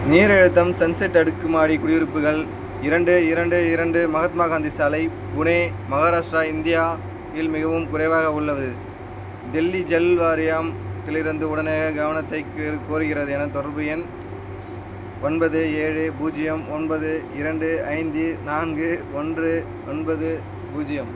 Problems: constant background noise